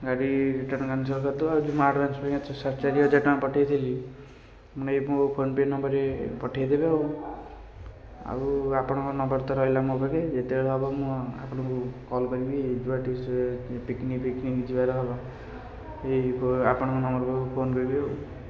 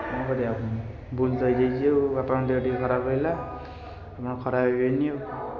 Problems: constant background noise